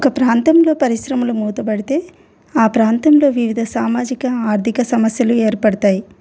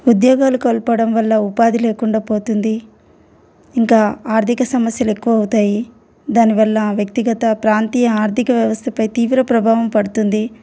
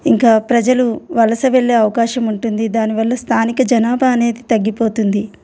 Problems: constant background noise